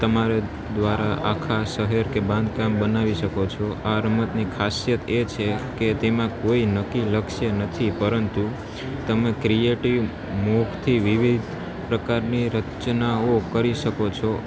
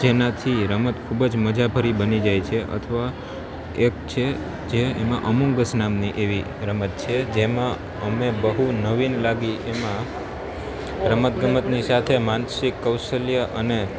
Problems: constant background noise